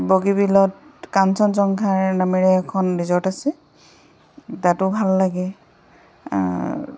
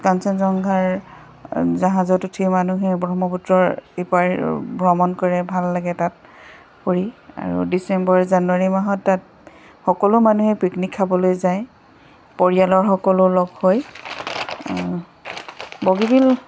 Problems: constant background noise